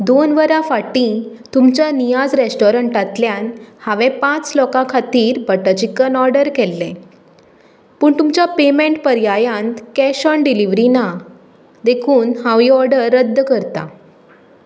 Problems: none marked